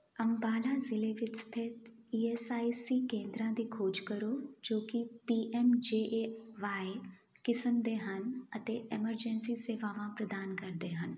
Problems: none marked